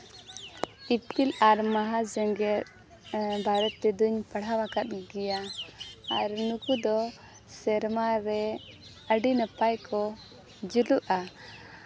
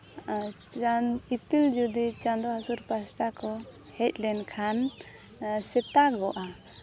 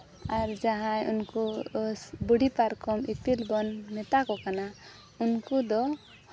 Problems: constant background noise